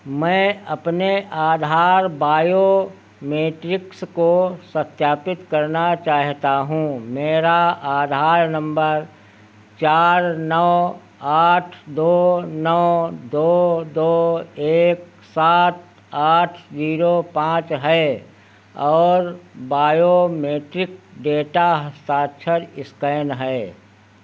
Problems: none marked